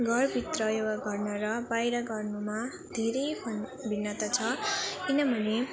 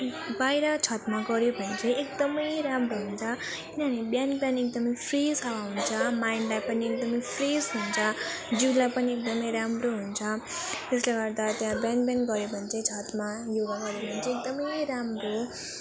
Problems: continuous background conversations